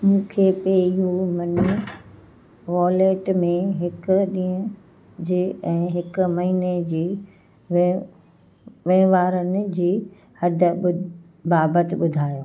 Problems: constant background noise, echo